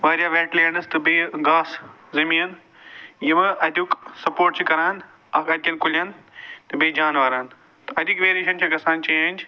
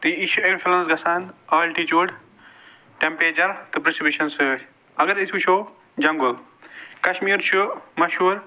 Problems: background sounds at intervals